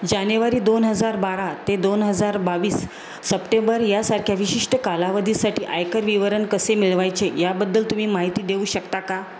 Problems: constant background noise